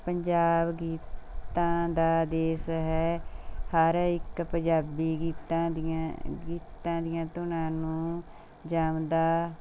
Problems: none marked